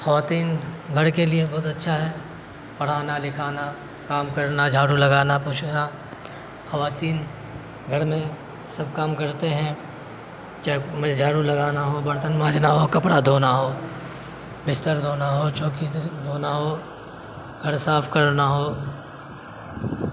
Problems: constant background noise